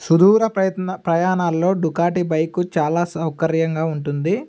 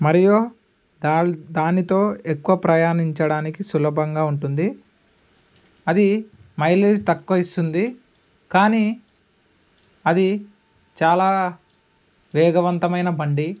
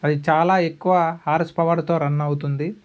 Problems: none marked